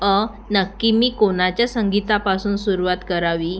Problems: constant background noise